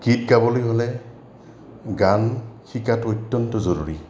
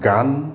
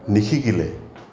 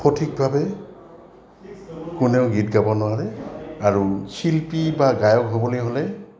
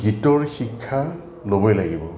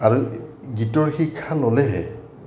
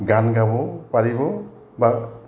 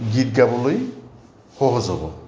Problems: constant background noise, background conversations at intervals